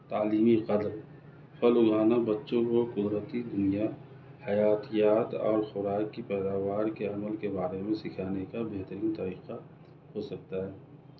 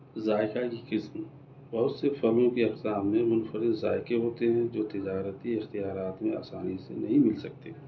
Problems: none marked